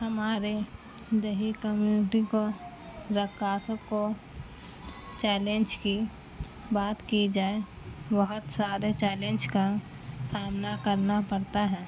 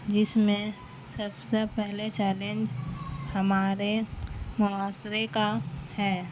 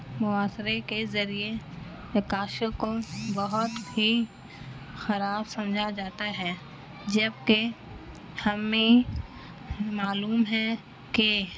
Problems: constant background noise